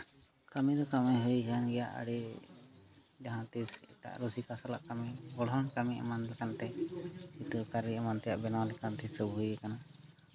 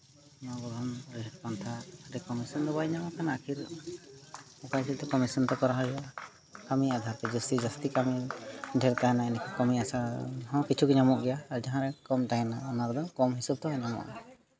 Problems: continuous background conversations